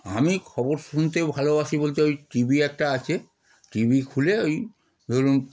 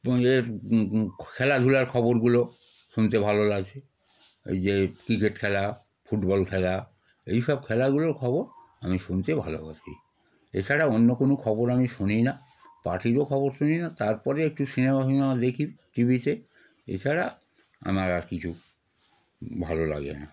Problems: constant background noise